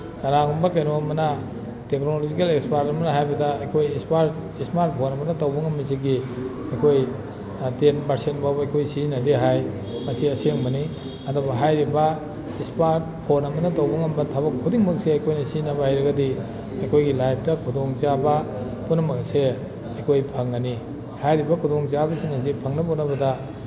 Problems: background sounds at intervals